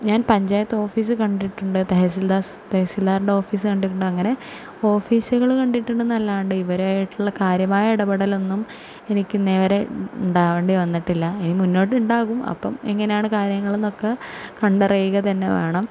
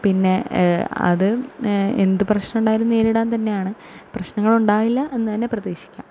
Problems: none marked